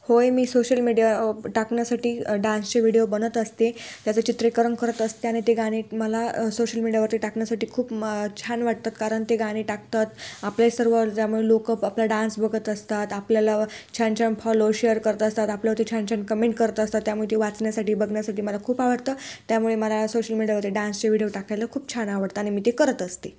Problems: constant background noise